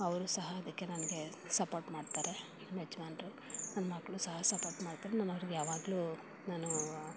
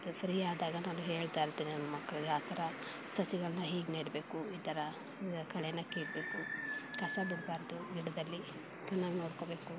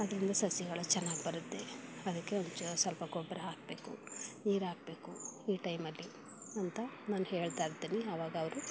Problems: background sounds at intervals